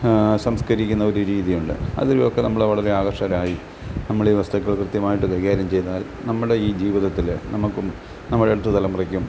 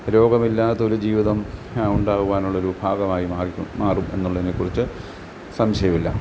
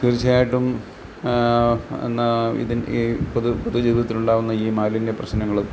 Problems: background sounds at intervals